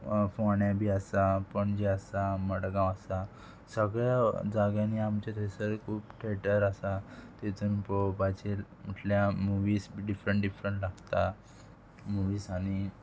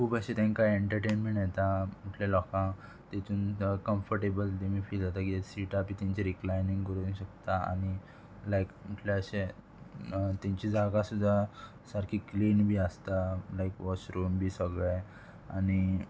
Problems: constant background noise